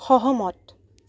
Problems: none marked